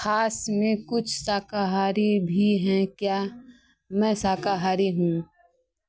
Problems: background sounds at intervals